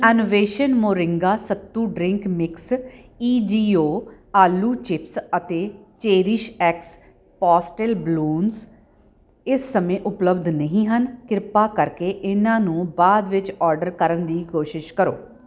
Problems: background conversations at intervals